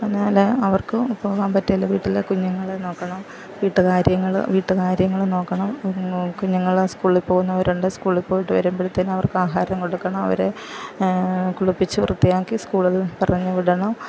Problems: background sounds at intervals, low volume